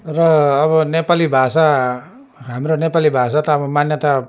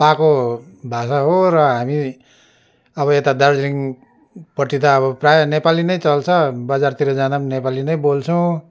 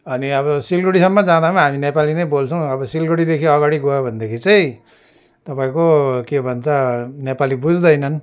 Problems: background sounds at intervals